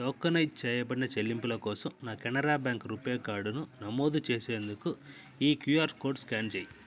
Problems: none marked